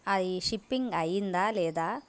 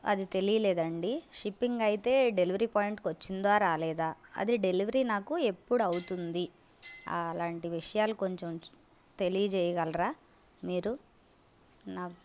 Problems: constant background noise